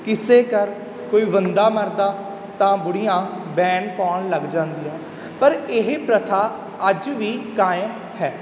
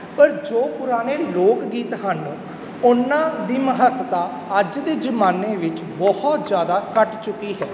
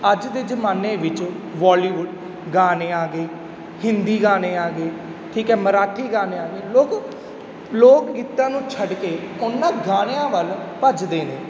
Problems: background sounds at intervals